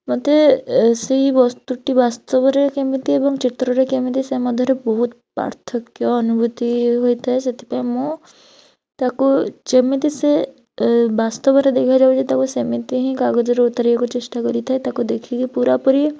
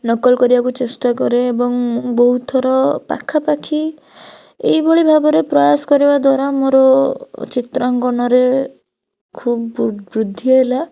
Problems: none marked